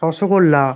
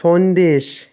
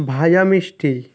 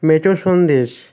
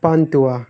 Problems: constant background noise